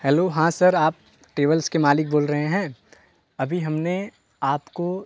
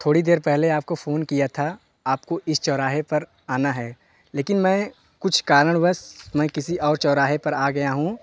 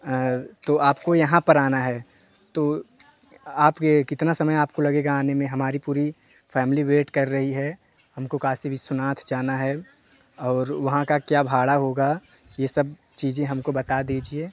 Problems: constant background noise